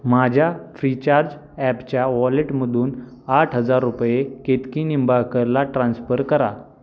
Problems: constant background noise